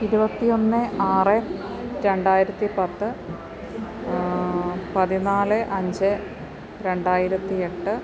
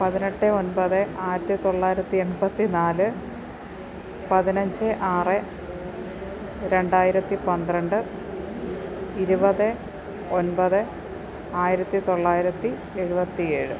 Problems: constant background noise